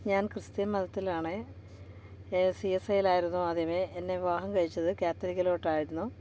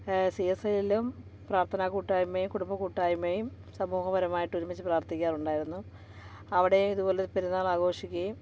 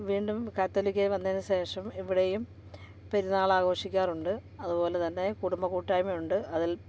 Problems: background sounds at intervals, background conversations at intervals